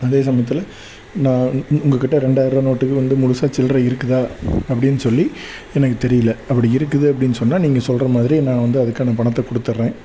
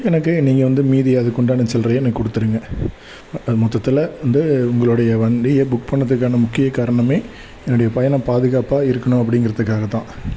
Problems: background sounds at intervals